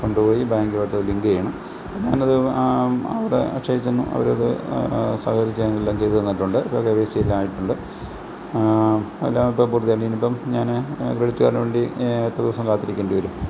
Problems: constant background noise